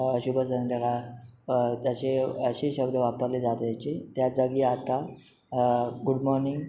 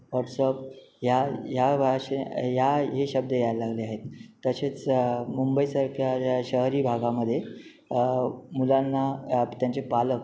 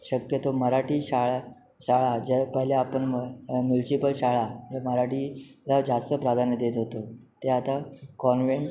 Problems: none marked